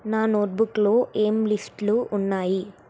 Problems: constant background noise